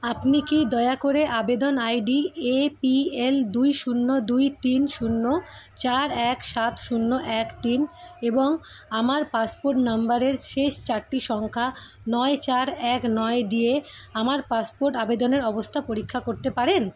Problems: constant background noise, background conversations at intervals